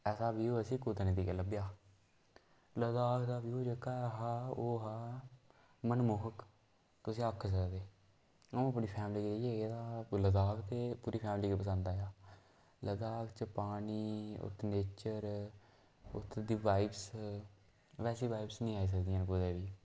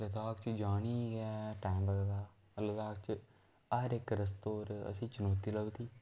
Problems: background sounds at intervals, echo